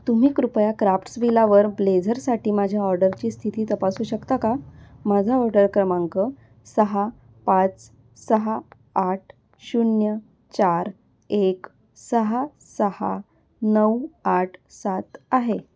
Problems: constant background noise